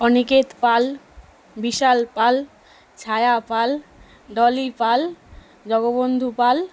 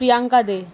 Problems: background sounds at intervals